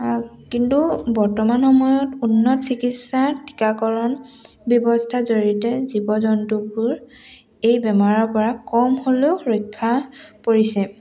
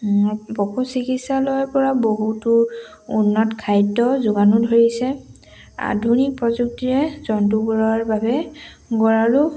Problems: background sounds at intervals